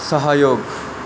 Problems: constant background noise